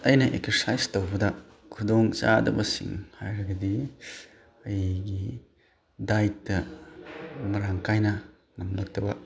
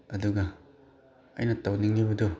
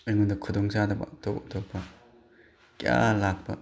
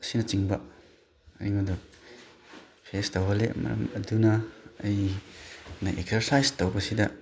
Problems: background sounds at intervals